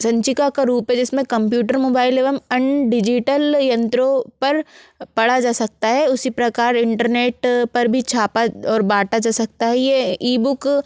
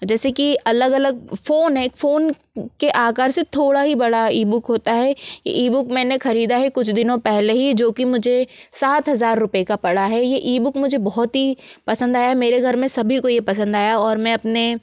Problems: constant background noise